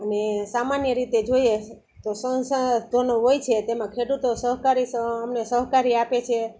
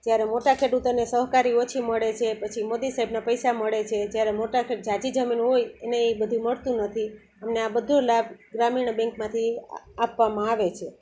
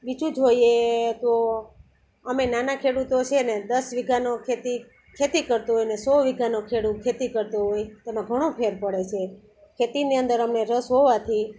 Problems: constant background noise